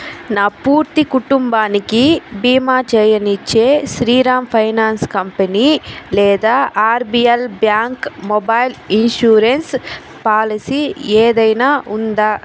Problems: constant background noise